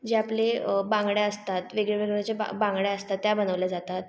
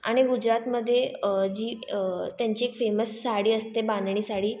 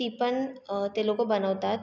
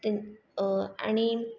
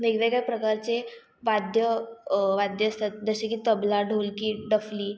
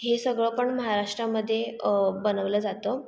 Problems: background sounds at intervals